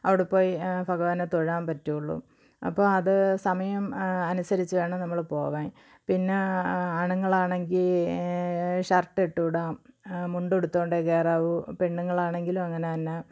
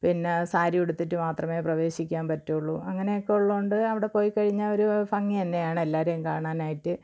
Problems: low volume